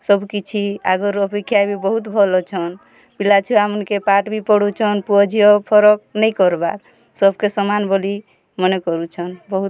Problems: constant background noise, continuous background conversations